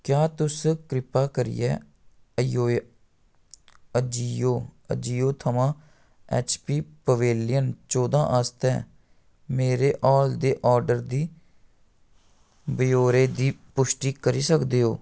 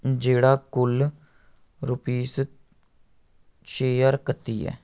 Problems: none marked